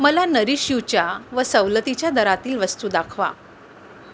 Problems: constant background noise